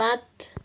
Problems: none marked